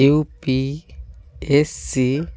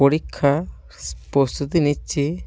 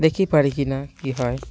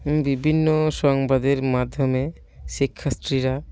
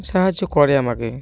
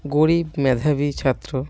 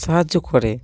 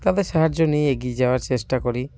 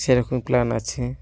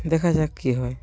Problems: none marked